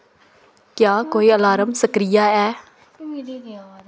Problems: background conversations at intervals